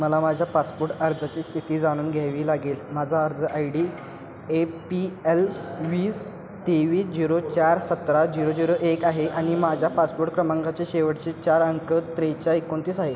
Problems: constant background noise, continuous background conversations